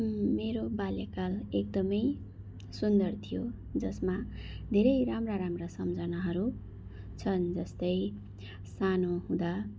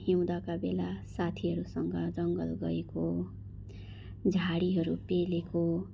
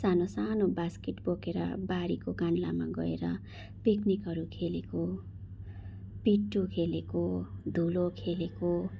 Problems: background sounds at intervals